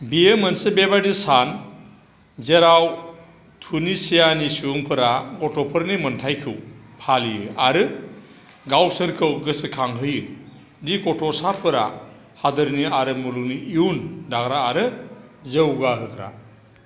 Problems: constant background noise